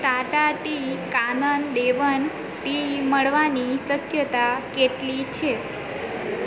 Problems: constant background noise